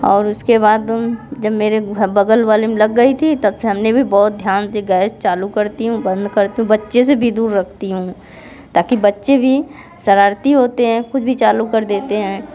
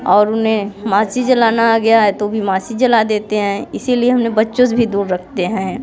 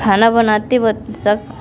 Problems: constant background noise, background conversations at intervals